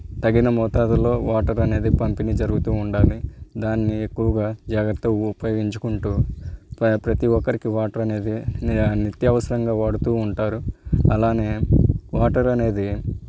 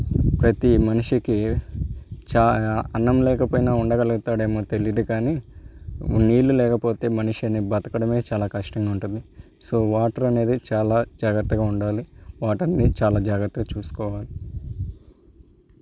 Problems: background sounds at intervals